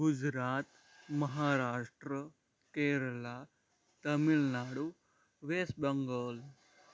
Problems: background sounds at intervals